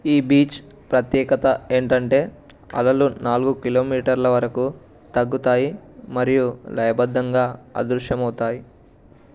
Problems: none marked